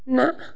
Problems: constant background noise